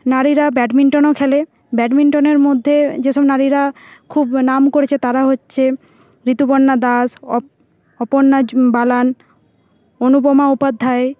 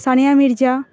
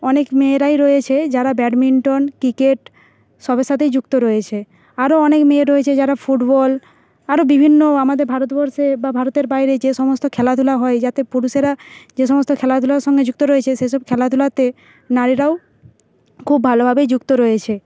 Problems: background sounds at intervals